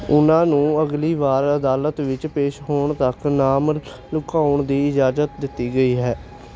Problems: none marked